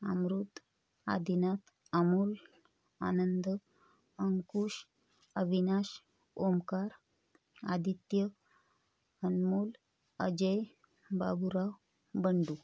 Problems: constant background noise